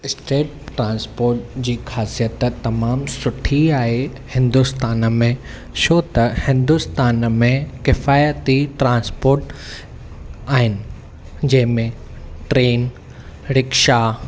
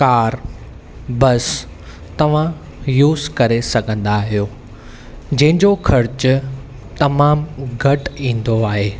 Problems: none marked